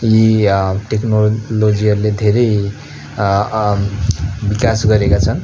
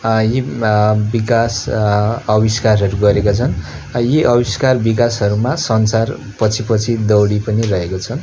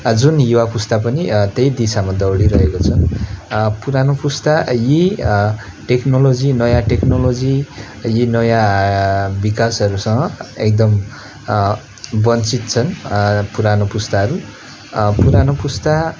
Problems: constant background noise